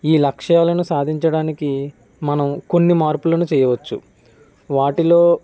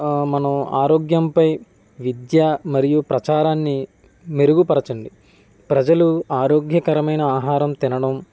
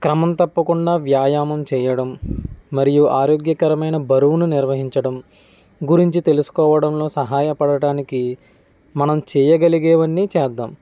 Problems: background conversations at intervals